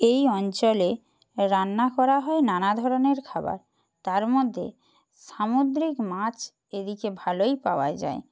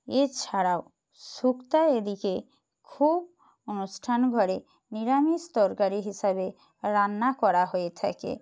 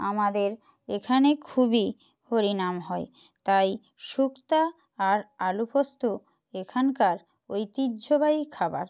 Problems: background sounds at intervals